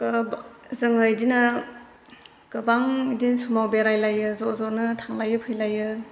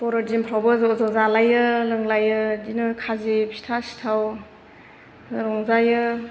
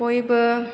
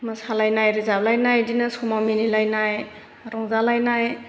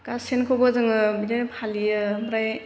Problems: constant background noise